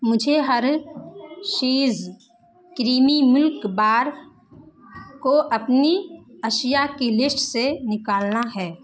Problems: constant background noise